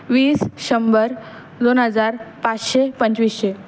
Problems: constant background noise